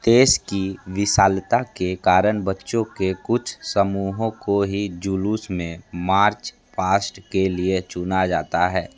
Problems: none marked